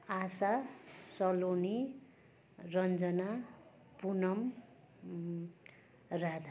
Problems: continuous background conversations